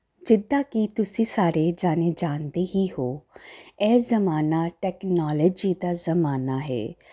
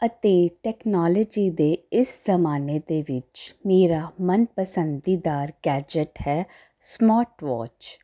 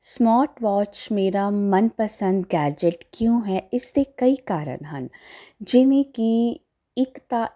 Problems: none marked